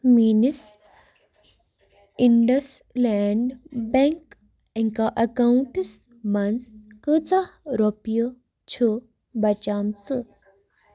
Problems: background sounds at intervals